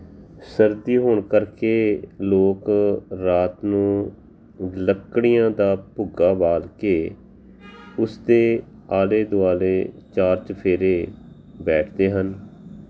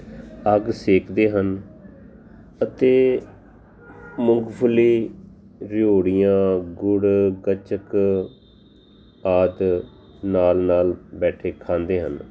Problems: constant background noise